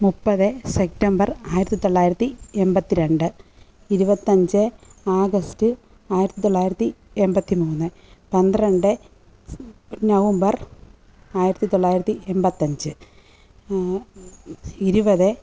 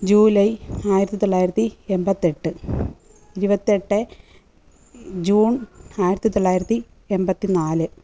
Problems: background sounds at intervals